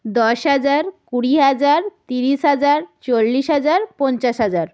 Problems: none marked